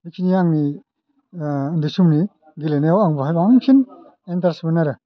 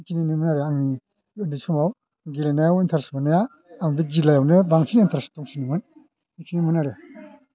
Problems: none marked